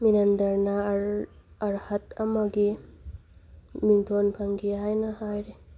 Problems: background sounds at intervals